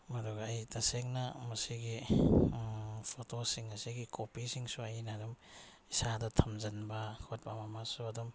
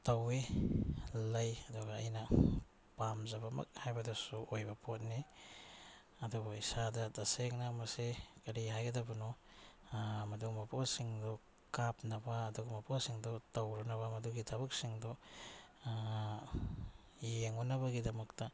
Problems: none marked